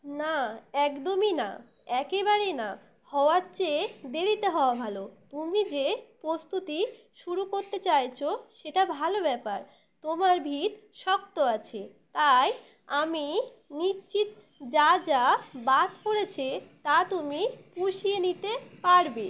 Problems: constant background noise